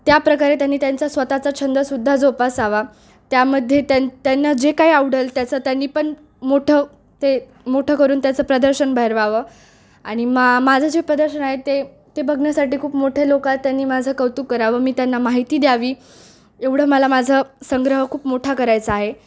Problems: none marked